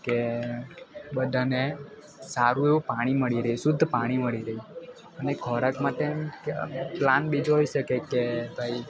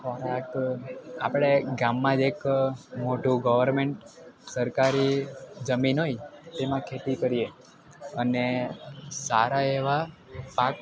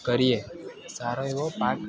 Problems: constant background noise